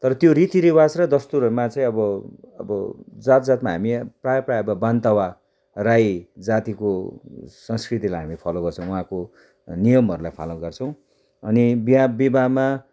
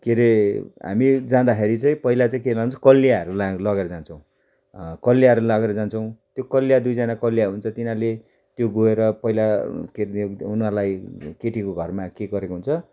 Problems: none marked